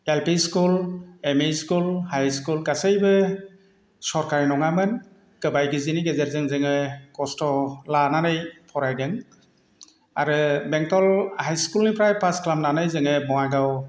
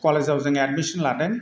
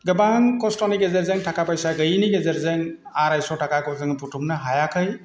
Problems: constant background noise